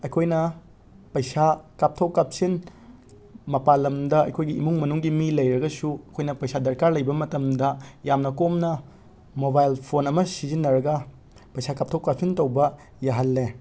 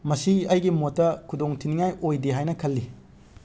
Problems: background sounds at intervals